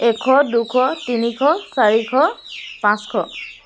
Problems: constant background noise